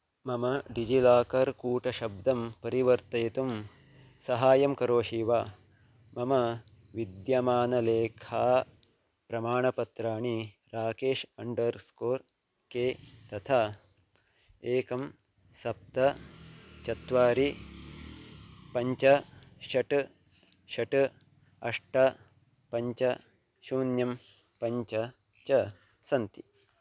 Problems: none marked